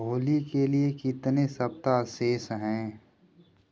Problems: background sounds at intervals